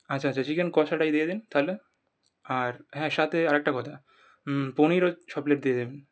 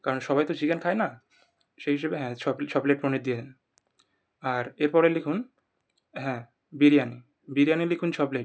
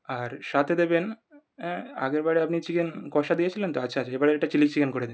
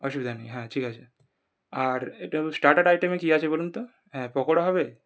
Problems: none marked